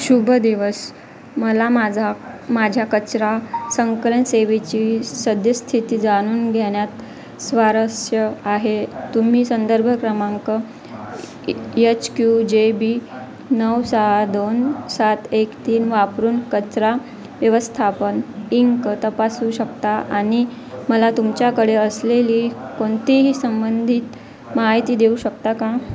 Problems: constant background noise, continuous background conversations